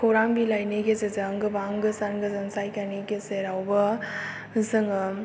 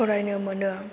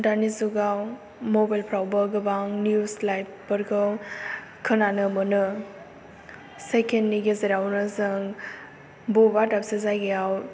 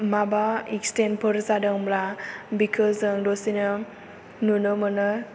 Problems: low volume